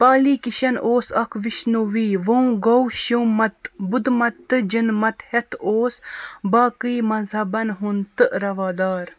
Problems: none marked